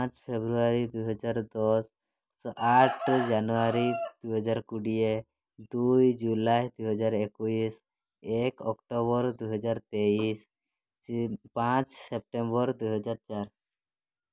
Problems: background sounds at intervals